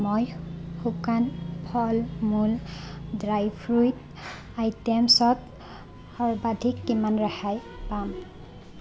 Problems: constant background noise